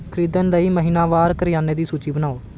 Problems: background sounds at intervals